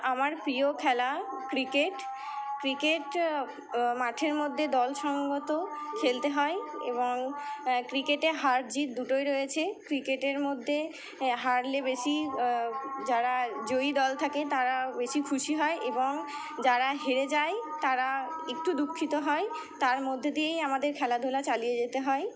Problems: constant background noise